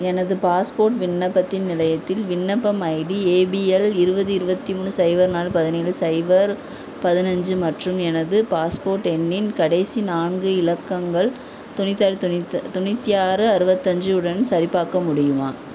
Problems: constant background noise